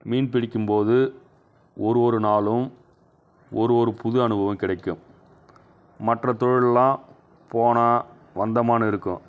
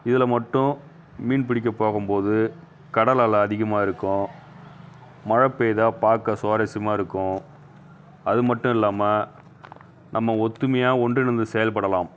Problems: background sounds at intervals